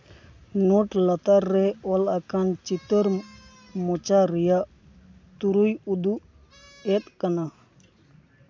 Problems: background sounds at intervals